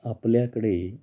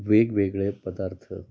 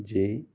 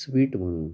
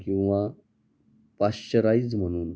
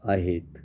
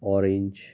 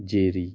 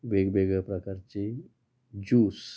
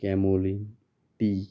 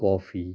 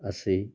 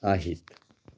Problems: constant background noise, background conversations at intervals